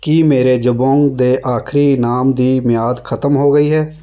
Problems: none marked